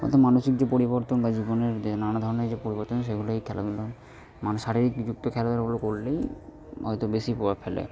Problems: background conversations at intervals